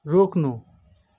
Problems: none marked